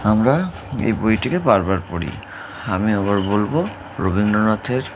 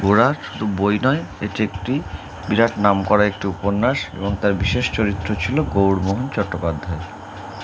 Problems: constant background noise